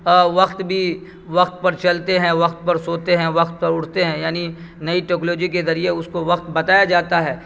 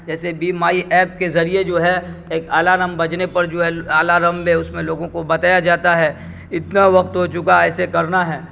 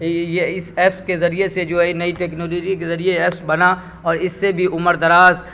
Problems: background sounds at intervals